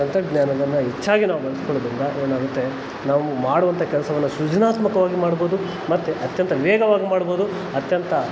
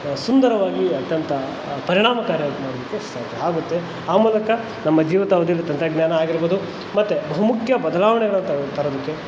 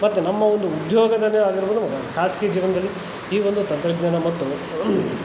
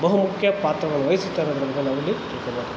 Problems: constant background noise